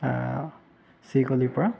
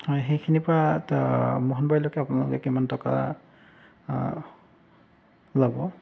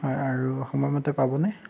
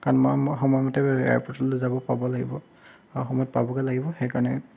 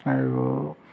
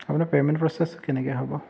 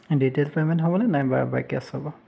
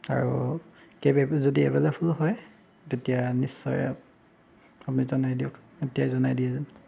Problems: background sounds at intervals